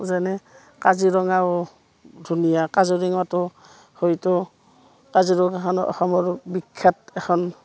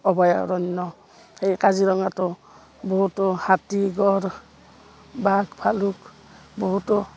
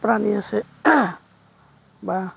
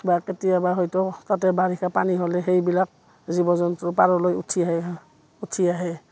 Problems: background sounds at intervals, background conversations at intervals